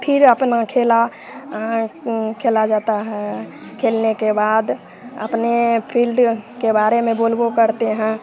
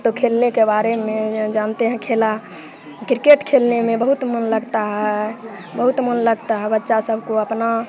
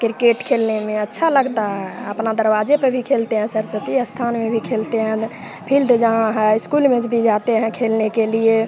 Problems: constant background noise, continuous background conversations